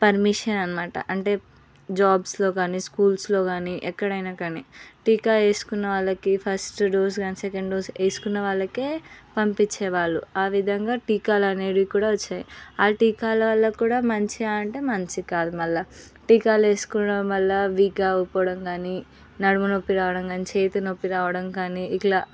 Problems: background sounds at intervals